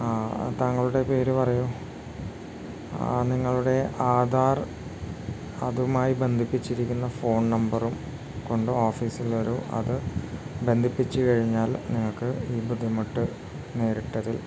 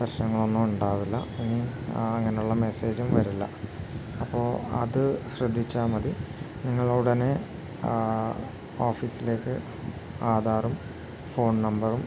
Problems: none marked